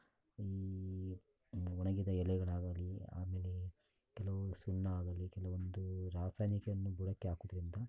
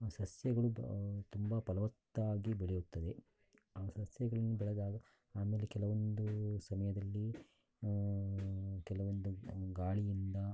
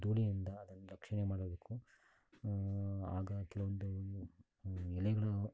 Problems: background sounds at intervals